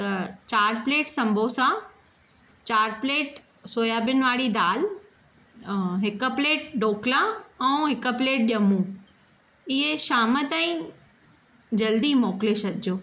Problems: none marked